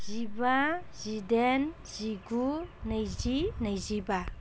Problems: none marked